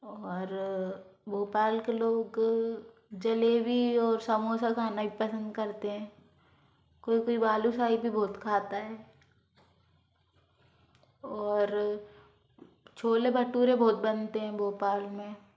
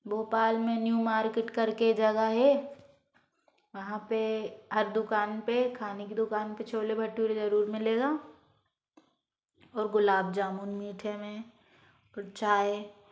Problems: background sounds at intervals